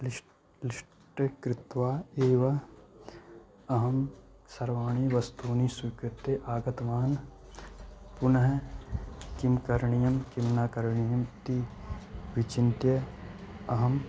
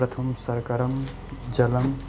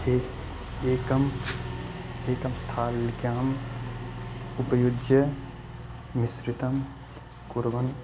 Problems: constant background noise